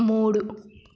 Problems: none marked